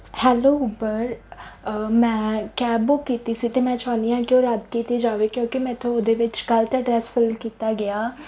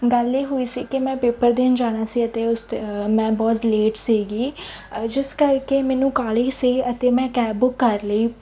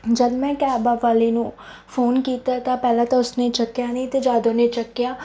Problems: none marked